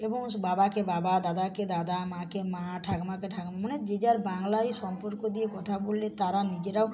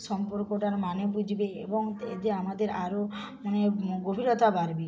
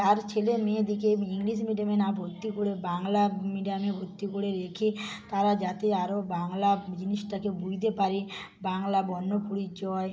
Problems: background sounds at intervals, background conversations at intervals, low volume